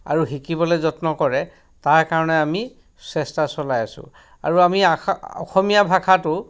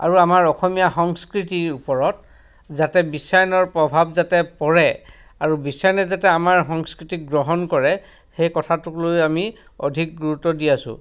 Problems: background sounds at intervals